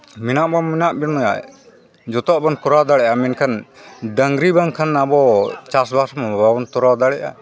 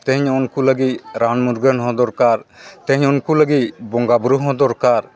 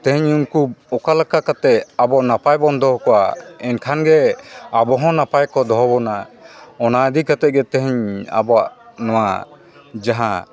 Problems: continuous background conversations